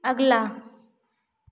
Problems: constant background noise, echo